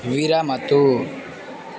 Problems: constant background noise, continuous background conversations